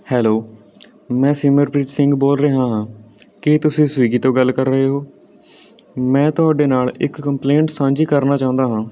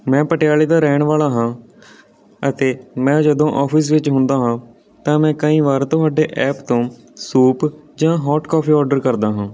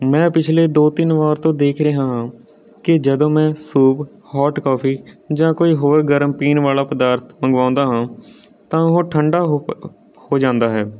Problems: none marked